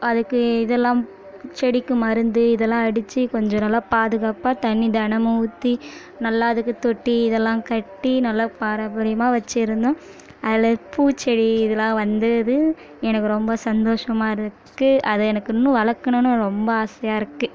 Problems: continuous background conversations